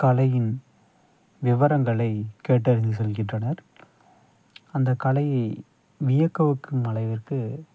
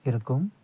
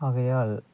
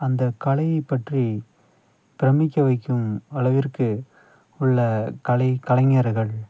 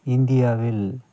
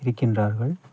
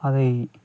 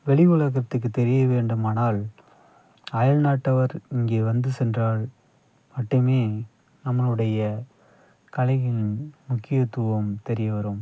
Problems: background sounds at intervals